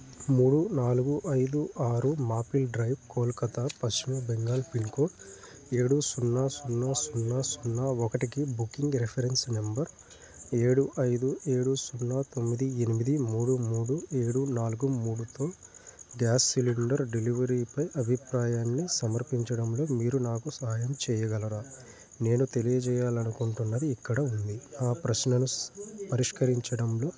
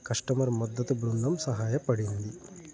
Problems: constant background noise, background conversations at intervals